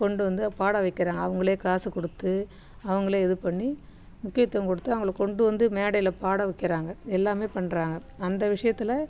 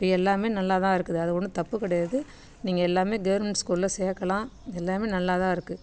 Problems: none marked